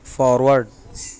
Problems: constant background noise